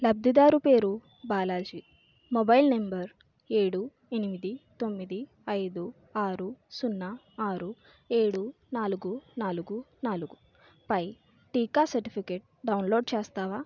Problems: none marked